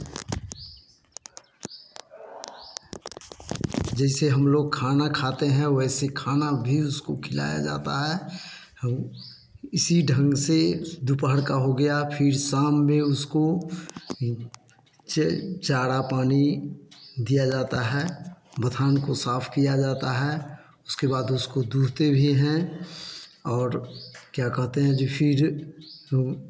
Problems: none marked